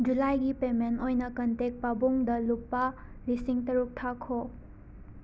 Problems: constant background noise